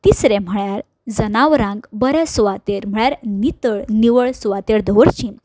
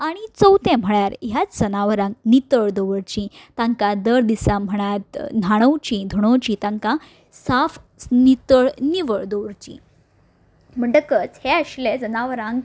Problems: none marked